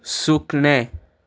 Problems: none marked